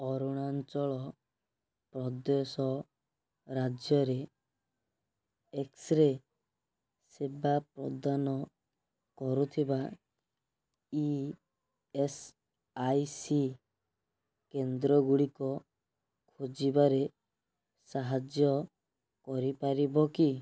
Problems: none marked